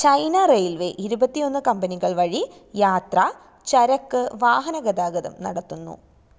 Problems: none marked